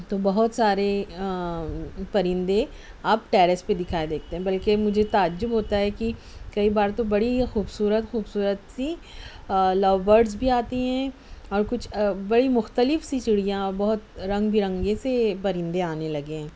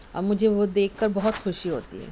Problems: none marked